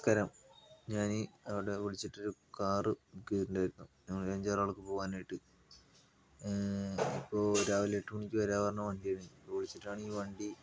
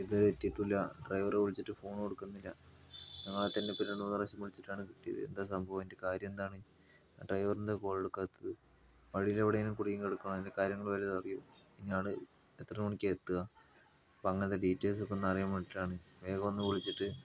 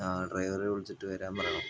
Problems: constant background noise